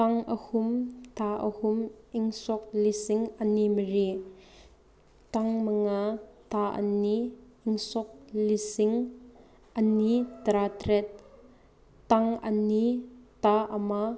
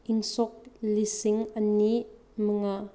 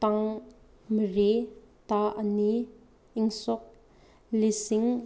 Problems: background sounds at intervals